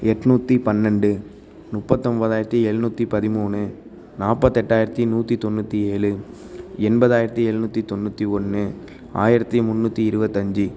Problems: none marked